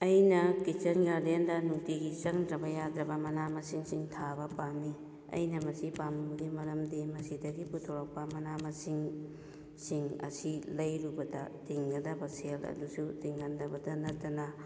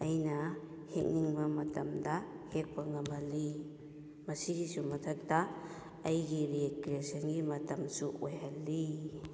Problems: none marked